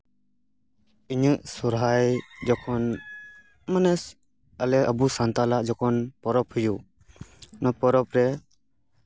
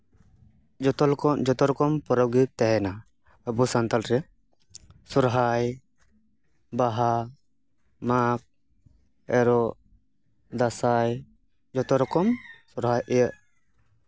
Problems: none marked